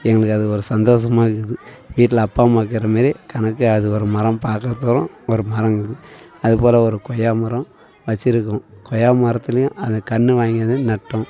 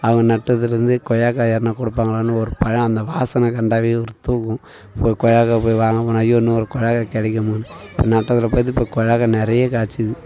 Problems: background sounds at intervals, continuous background conversations